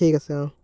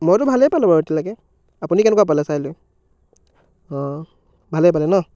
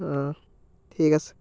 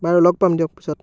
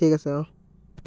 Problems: background sounds at intervals, background conversations at intervals